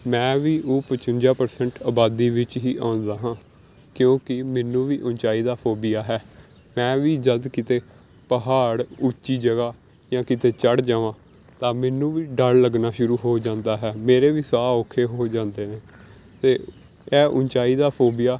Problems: background sounds at intervals